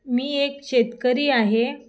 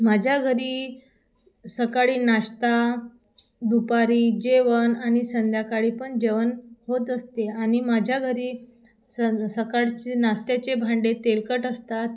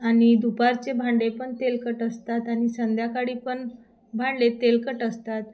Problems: constant background noise, background conversations at intervals